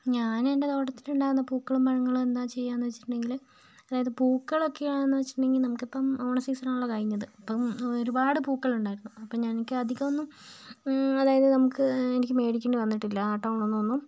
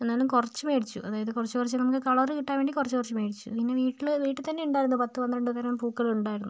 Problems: none marked